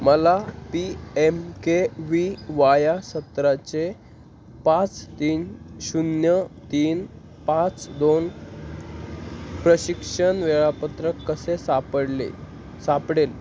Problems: constant background noise